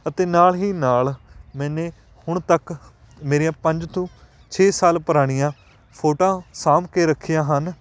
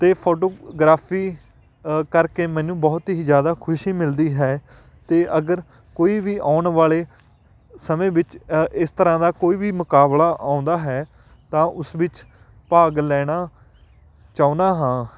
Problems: background sounds at intervals